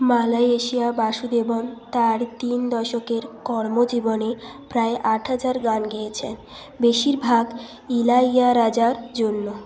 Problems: continuous background conversations